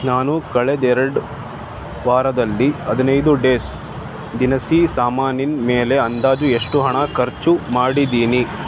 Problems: constant background noise